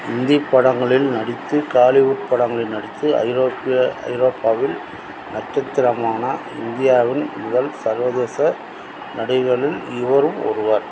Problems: constant background noise